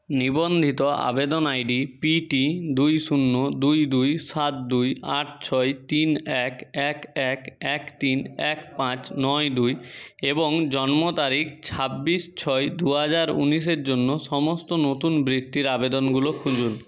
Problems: background sounds at intervals